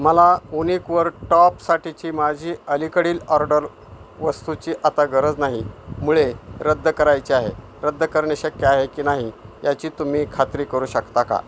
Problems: constant background noise